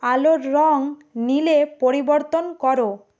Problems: constant background noise